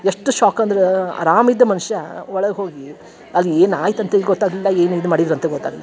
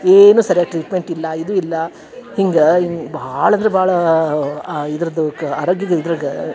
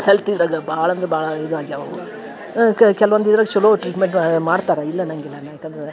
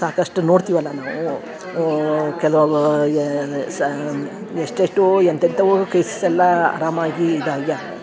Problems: background sounds at intervals